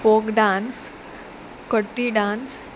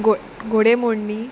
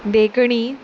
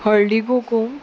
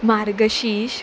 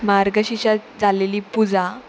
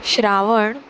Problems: constant background noise